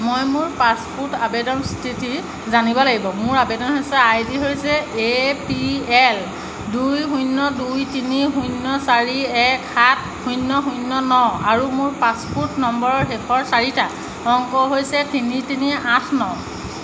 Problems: background sounds at intervals